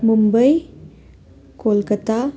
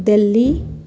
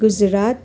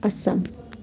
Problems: none marked